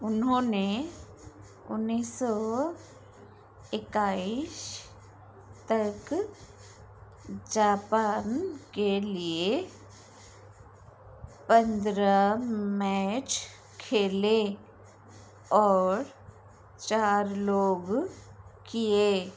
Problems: constant background noise